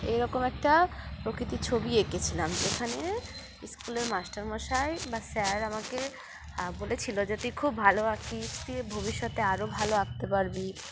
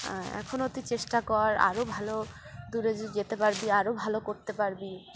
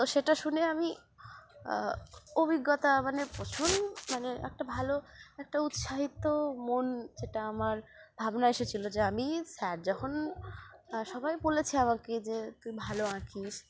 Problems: constant background noise